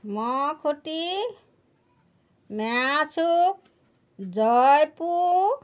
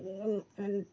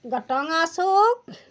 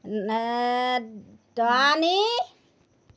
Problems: background sounds at intervals